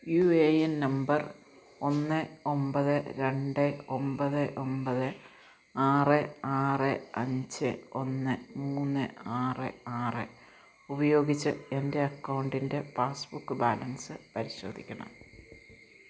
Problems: constant background noise, low volume